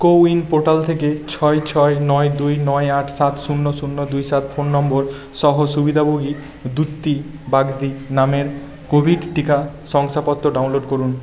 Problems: constant background noise